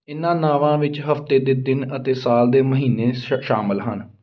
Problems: none marked